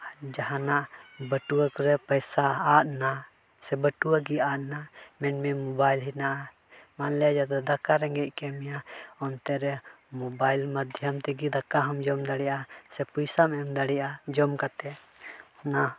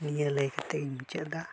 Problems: background sounds at intervals